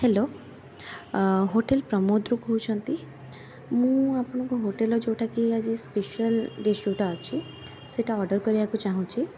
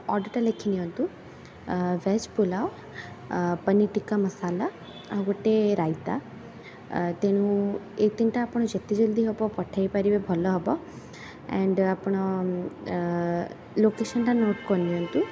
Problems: constant background noise